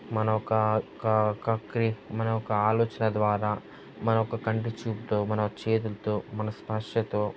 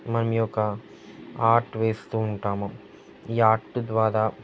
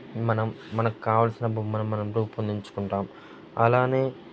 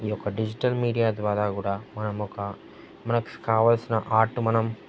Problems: constant background noise, background conversations at intervals